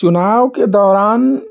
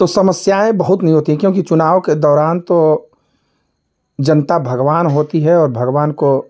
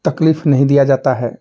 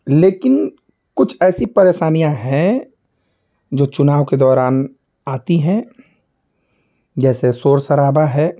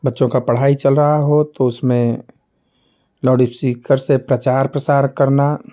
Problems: constant background noise